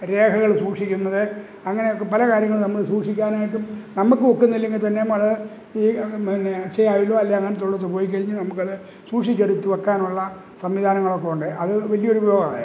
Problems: background sounds at intervals